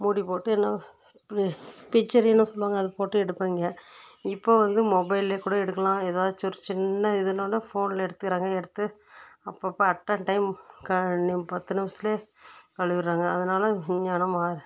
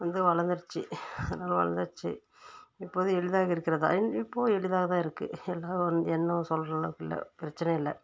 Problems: background sounds at intervals